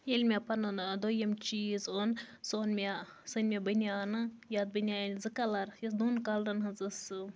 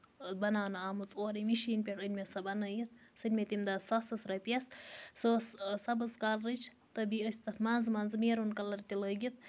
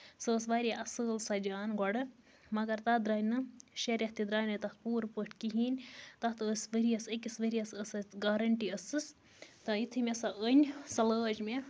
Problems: constant background noise